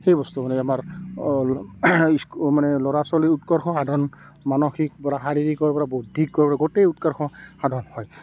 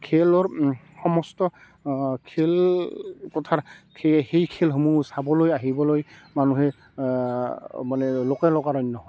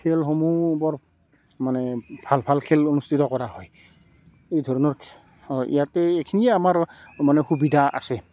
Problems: background sounds at intervals, background conversations at intervals